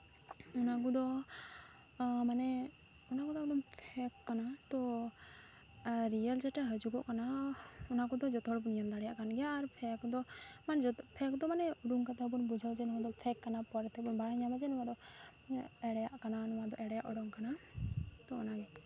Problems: constant background noise, low volume